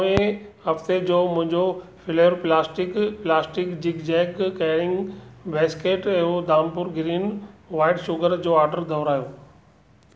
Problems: none marked